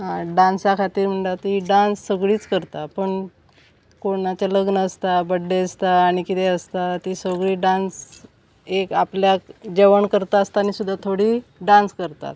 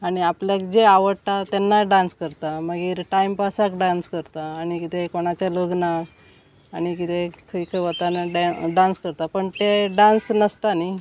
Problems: none marked